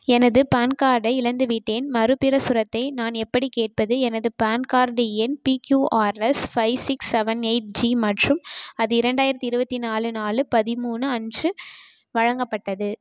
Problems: none marked